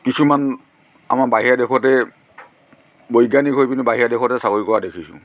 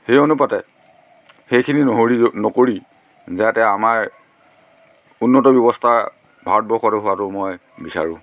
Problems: constant background noise